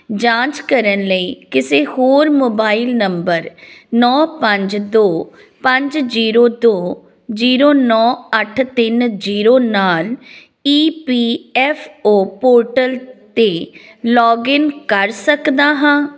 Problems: constant background noise